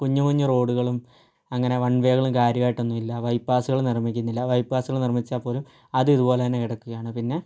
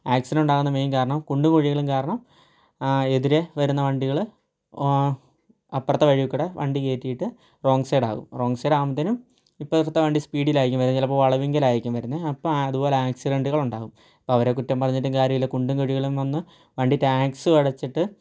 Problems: low volume